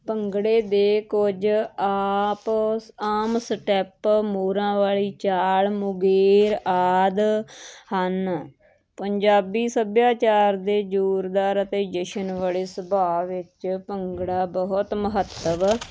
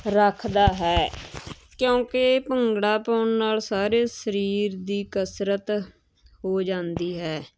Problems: constant background noise